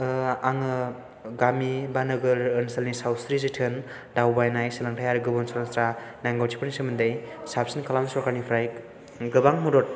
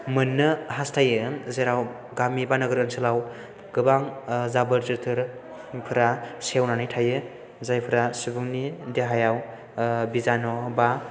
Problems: none marked